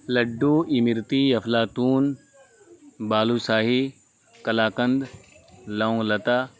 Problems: constant background noise